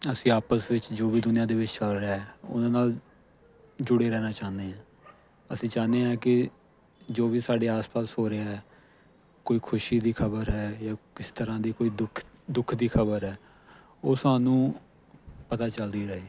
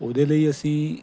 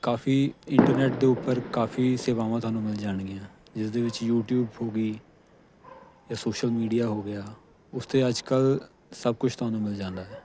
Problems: constant background noise